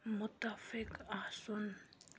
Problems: low volume